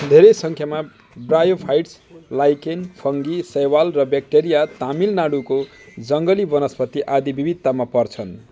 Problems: none marked